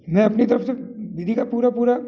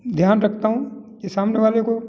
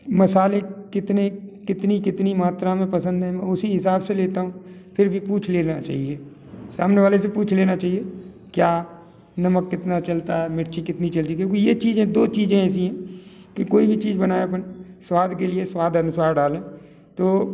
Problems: none marked